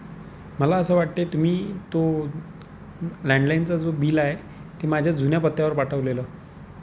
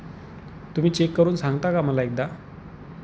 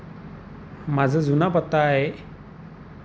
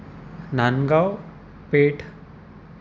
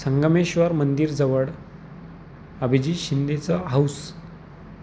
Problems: constant background noise